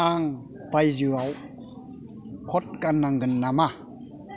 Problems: none marked